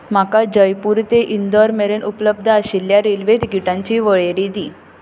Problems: none marked